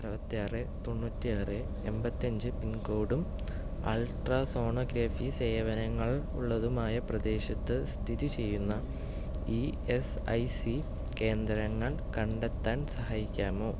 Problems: background sounds at intervals, low volume